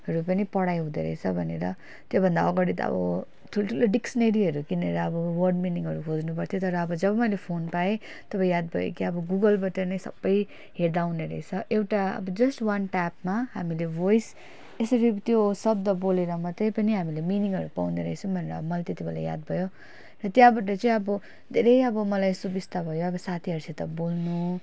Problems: none marked